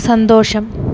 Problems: background sounds at intervals